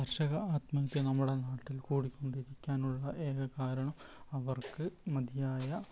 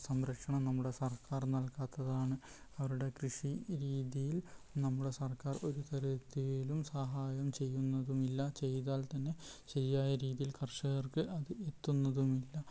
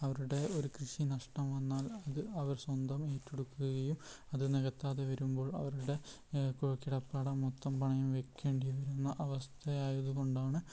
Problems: background sounds at intervals, low volume